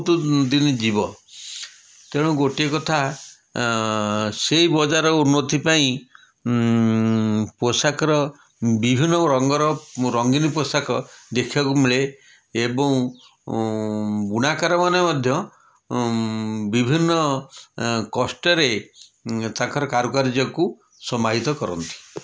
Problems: none marked